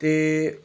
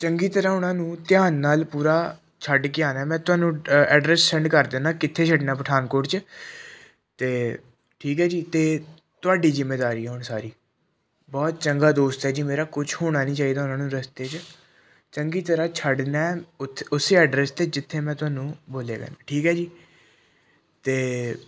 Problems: none marked